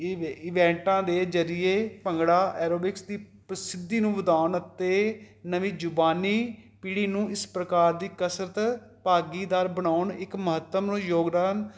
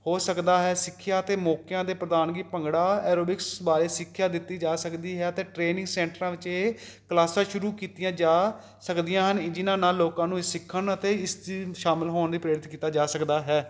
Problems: none marked